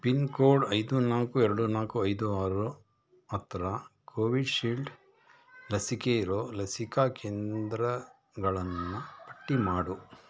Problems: background sounds at intervals